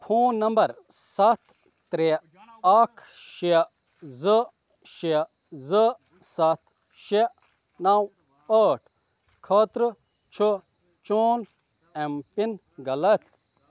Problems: none marked